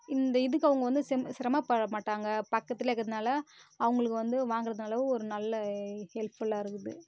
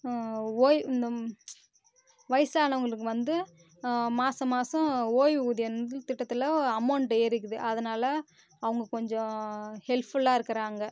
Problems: constant background noise